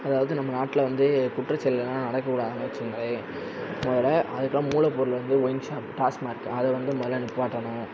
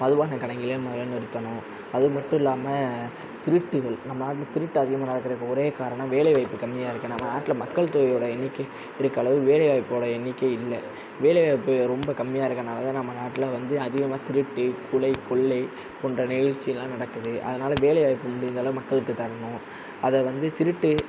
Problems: constant background noise